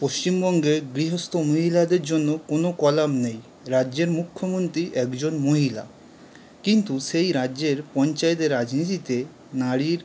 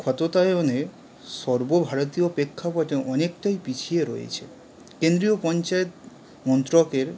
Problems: background sounds at intervals